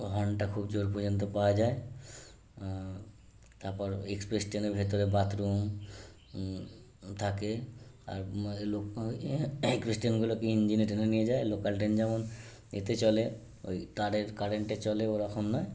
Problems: constant background noise